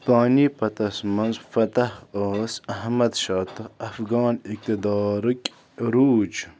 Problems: none marked